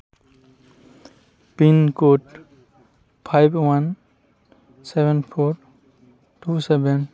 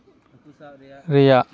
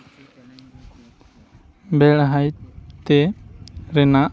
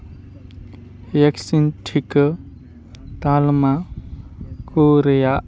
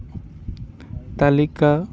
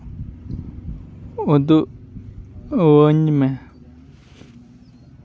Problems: constant background noise, continuous background conversations